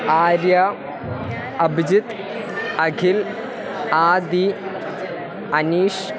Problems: constant background noise